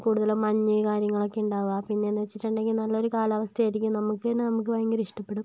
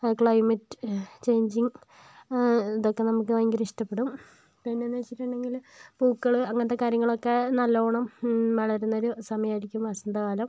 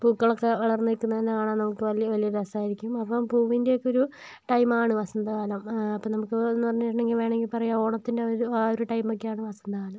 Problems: low volume